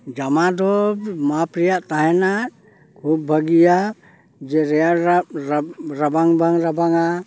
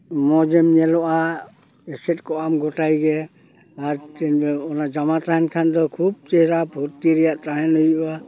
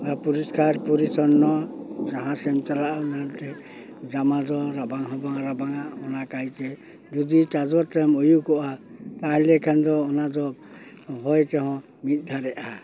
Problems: constant background noise